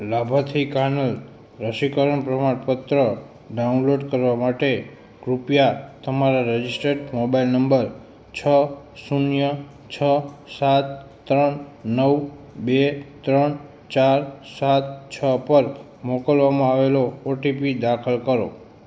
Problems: constant background noise